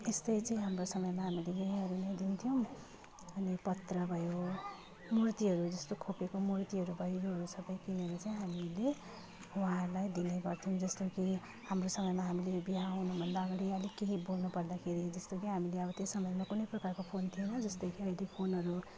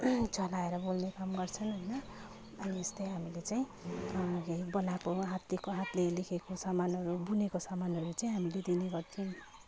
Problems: continuous background conversations